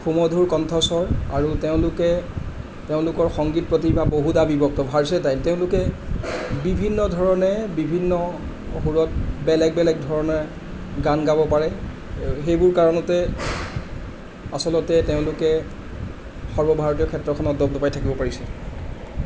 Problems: none marked